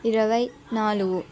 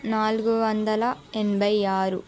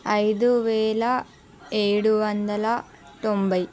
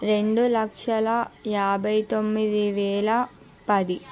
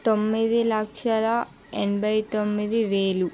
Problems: background conversations at intervals